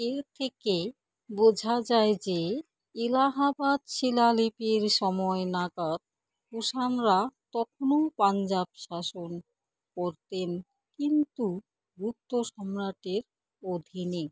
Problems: none marked